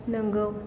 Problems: none marked